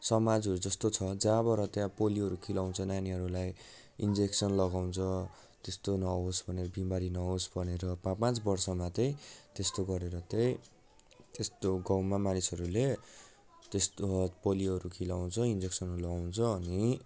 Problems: background conversations at intervals